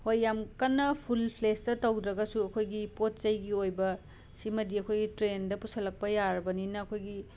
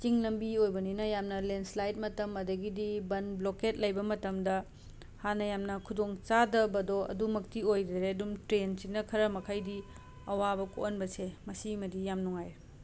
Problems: constant background noise